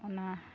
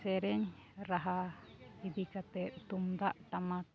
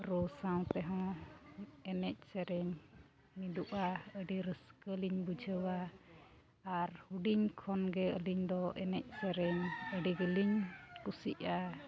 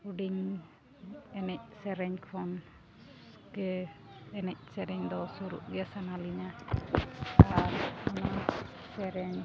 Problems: background sounds at intervals